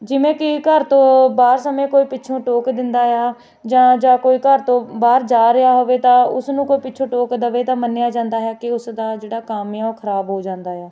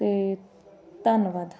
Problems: constant background noise, background conversations at intervals